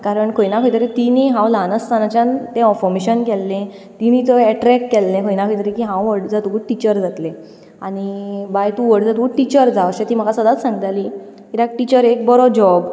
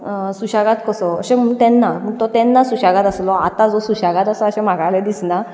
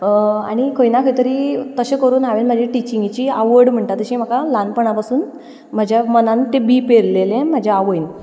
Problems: background sounds at intervals, continuous background conversations